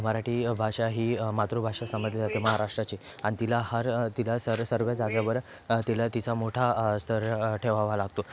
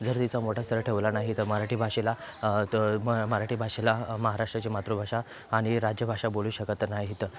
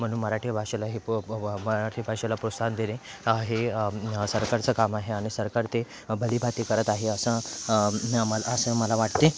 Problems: background sounds at intervals